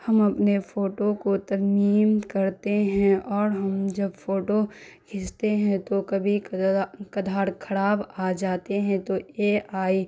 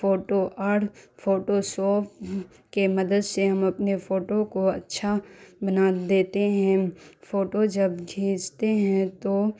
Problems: constant background noise